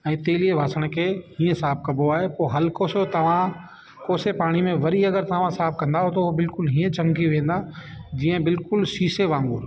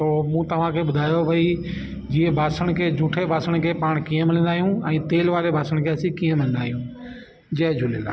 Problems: constant background noise